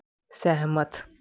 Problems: none marked